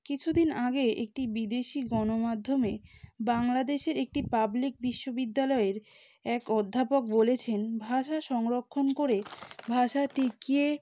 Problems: background sounds at intervals